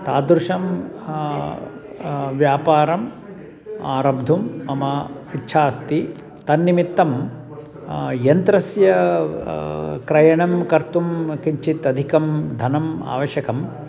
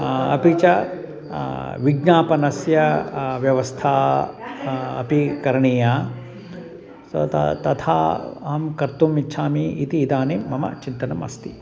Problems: background sounds at intervals, background conversations at intervals